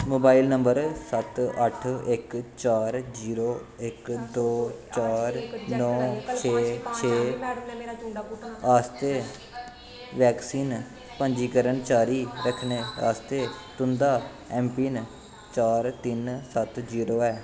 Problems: constant background noise, background conversations at intervals